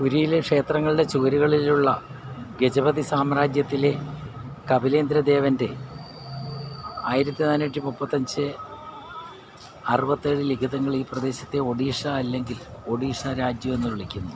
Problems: constant background noise